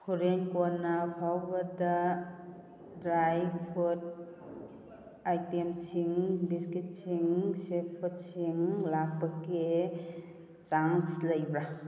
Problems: background sounds at intervals